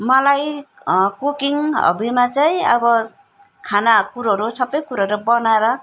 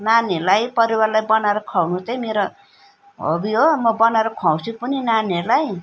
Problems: none marked